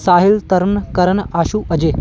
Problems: none marked